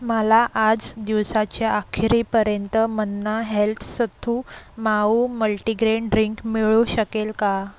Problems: none marked